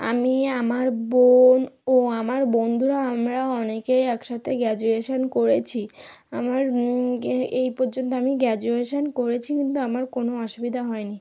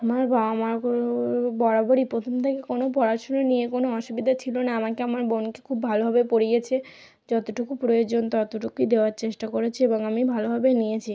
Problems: background conversations at intervals